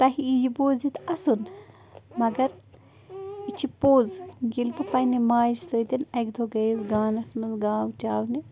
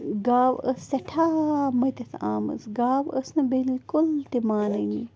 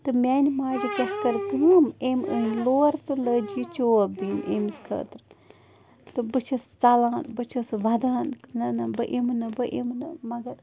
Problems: constant background noise